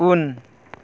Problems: none marked